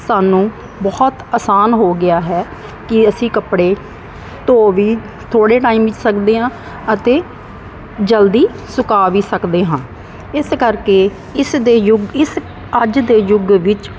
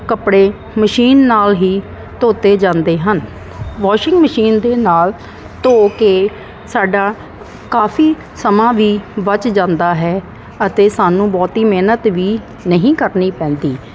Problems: constant background noise